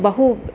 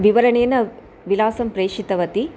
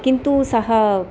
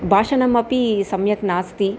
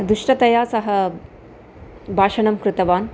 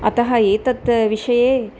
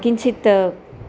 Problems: constant background noise